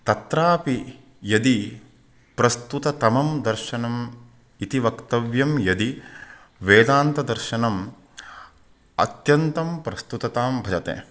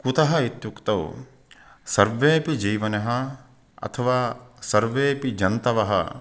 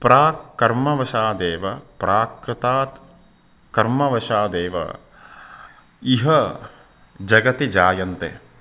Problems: none marked